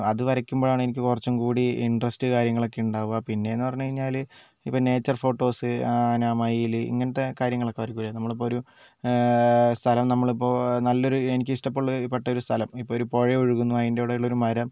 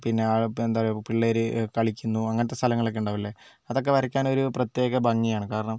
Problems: none marked